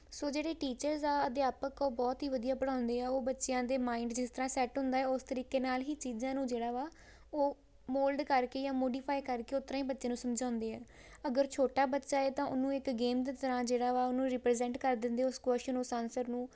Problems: background sounds at intervals